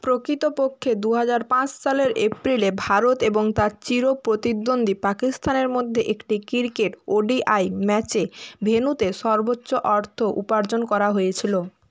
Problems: constant background noise